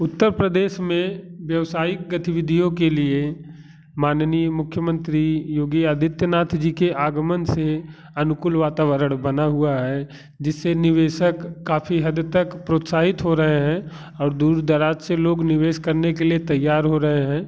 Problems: none marked